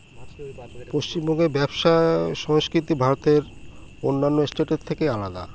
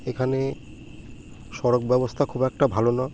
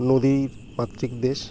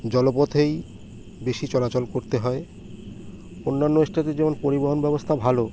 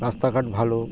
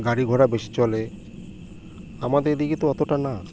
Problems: none marked